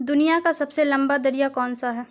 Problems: constant background noise